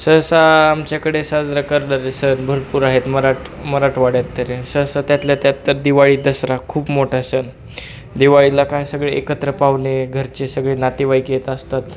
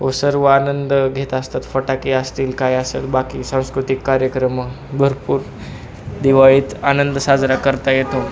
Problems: constant background noise, continuous background conversations